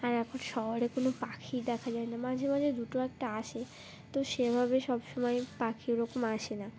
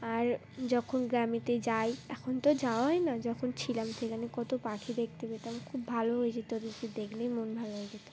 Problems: none marked